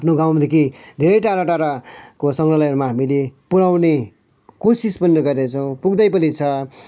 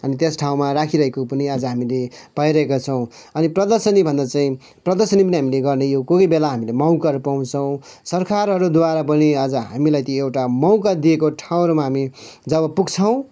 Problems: background sounds at intervals